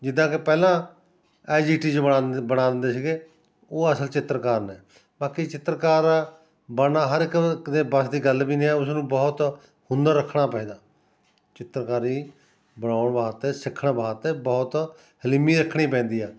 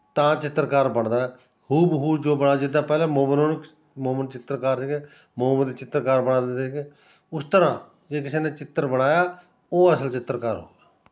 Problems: continuous background conversations